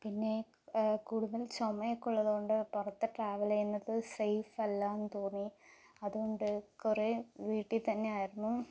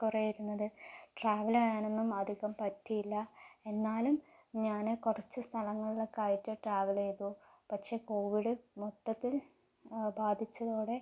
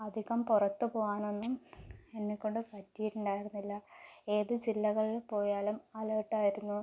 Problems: low volume